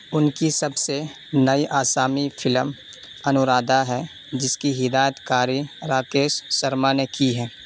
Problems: constant background noise